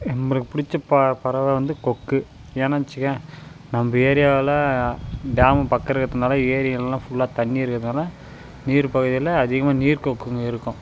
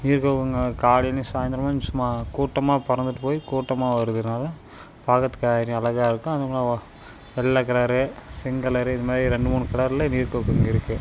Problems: constant background noise